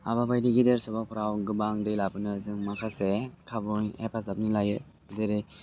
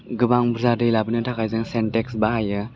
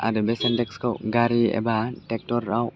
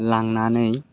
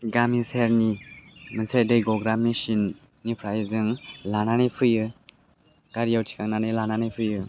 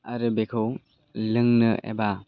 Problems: none marked